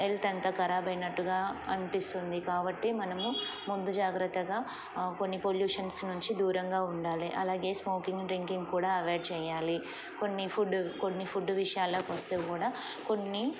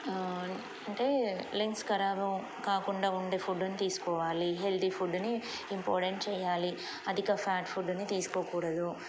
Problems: constant background noise